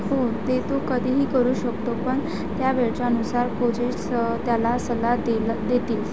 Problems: constant background noise